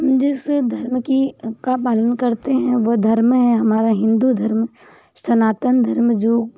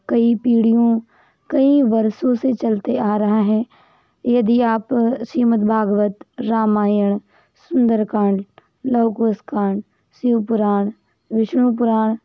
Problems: background sounds at intervals